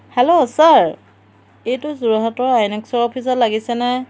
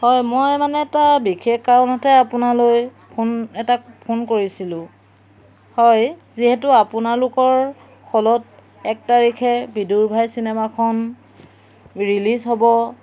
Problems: background sounds at intervals